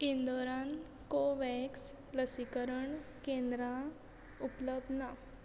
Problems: background sounds at intervals